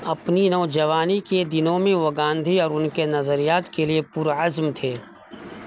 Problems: constant background noise